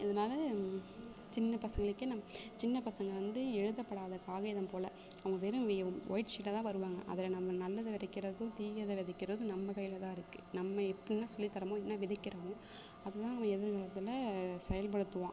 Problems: constant background noise, low volume